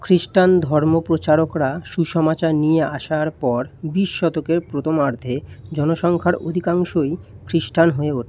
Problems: none marked